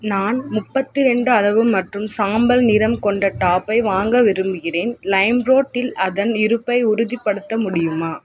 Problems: constant background noise, background conversations at intervals